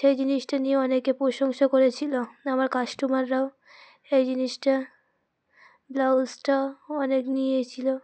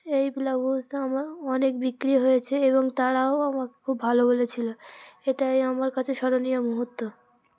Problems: constant background noise, background conversations at intervals